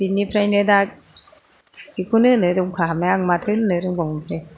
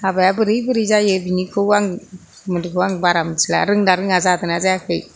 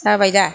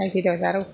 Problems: none marked